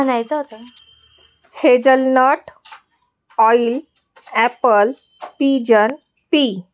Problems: background conversations at intervals